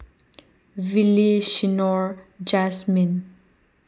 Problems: background sounds at intervals